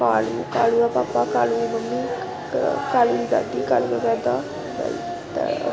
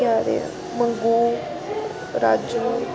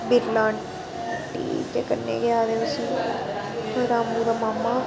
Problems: constant background noise, background conversations at intervals